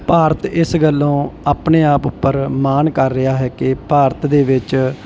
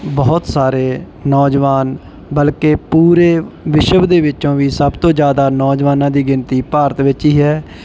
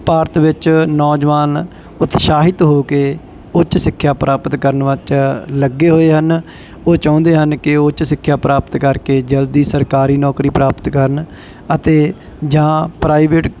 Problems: background sounds at intervals